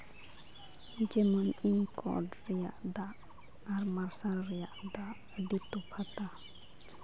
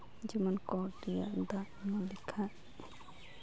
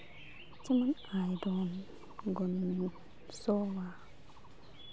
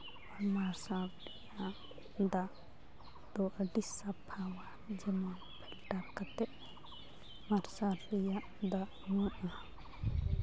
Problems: constant background noise, continuous background conversations